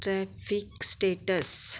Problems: background sounds at intervals